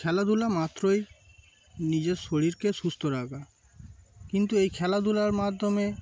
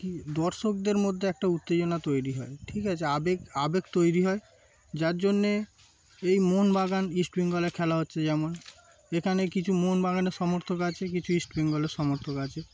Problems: constant background noise, background conversations at intervals